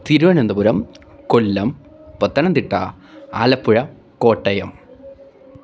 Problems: background sounds at intervals